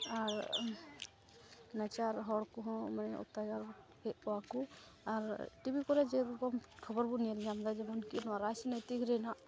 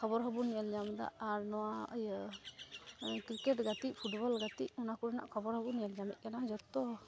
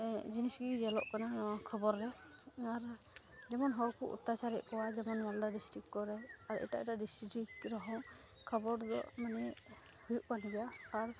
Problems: background sounds at intervals, low volume